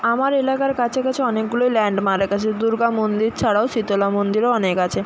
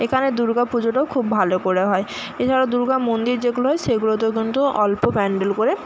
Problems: constant background noise